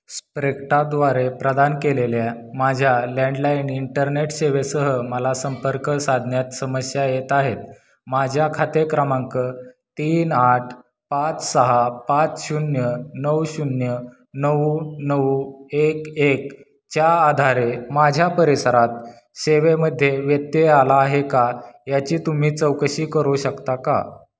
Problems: constant background noise, background conversations at intervals